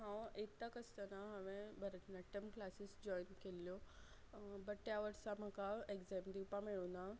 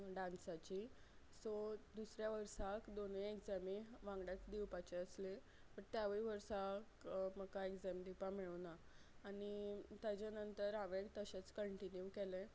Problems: low volume